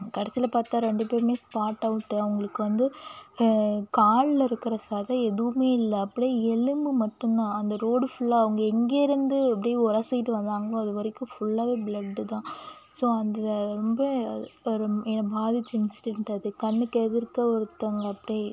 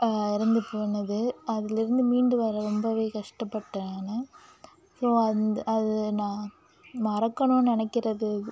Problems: none marked